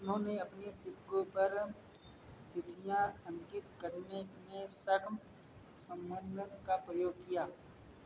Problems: none marked